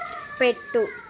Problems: continuous background conversations